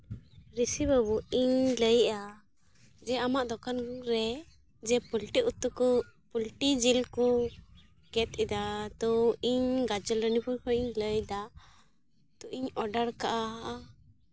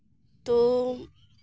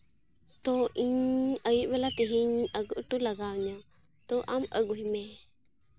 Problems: background sounds at intervals, low volume